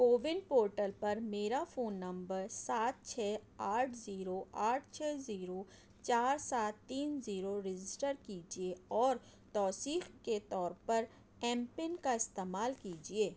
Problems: none marked